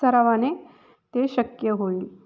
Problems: constant background noise, echo